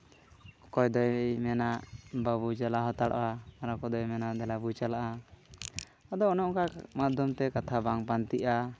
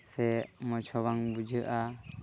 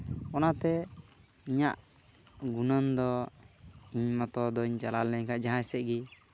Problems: constant background noise